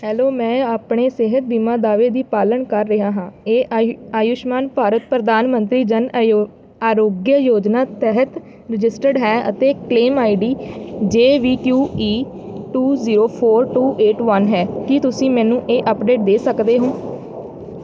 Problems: none marked